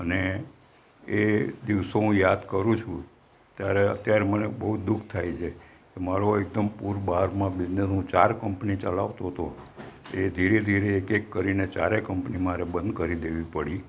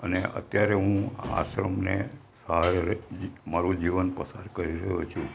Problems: none marked